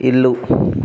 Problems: background conversations at intervals